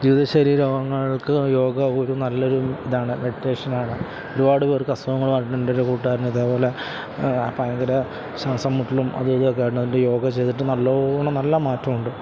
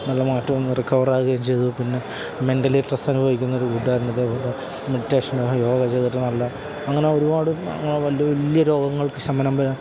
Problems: constant background noise